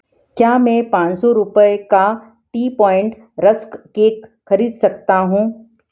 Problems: background sounds at intervals